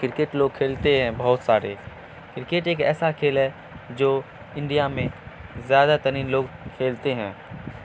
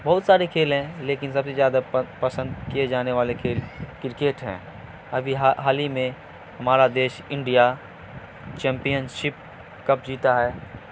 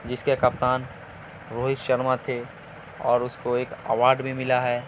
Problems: constant background noise